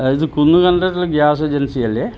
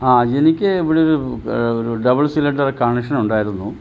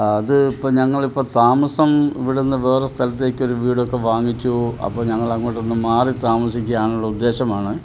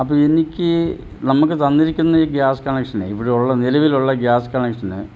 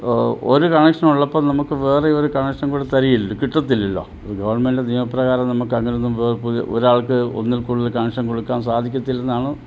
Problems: background sounds at intervals, low volume